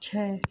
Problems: background sounds at intervals